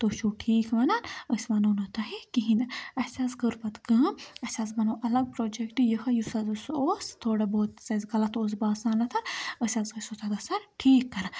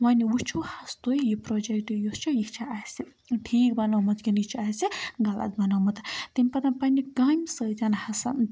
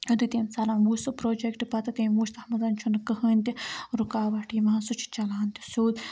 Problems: background sounds at intervals